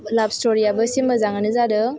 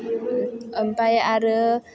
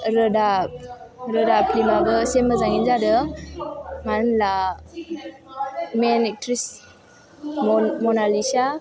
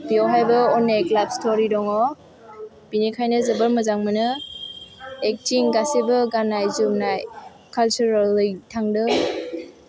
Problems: background sounds at intervals